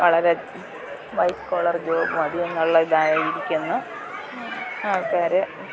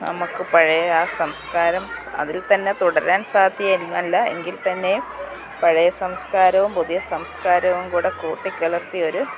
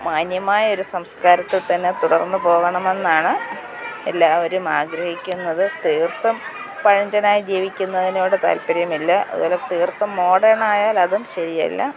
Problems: background sounds at intervals